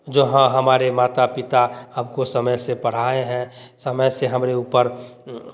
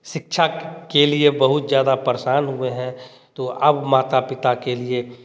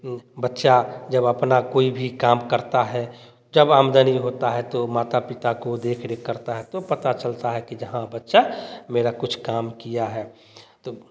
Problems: none marked